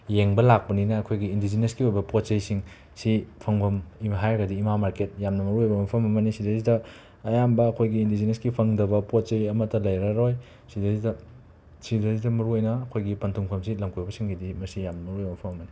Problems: background sounds at intervals